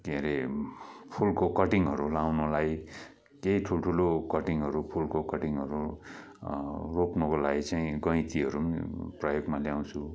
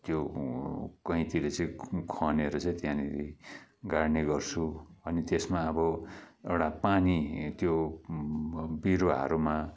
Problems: background sounds at intervals